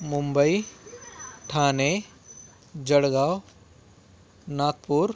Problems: background sounds at intervals